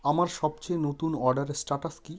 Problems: constant background noise